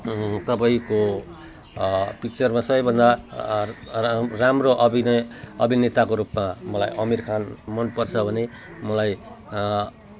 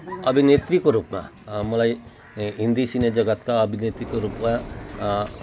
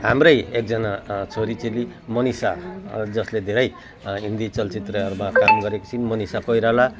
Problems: none marked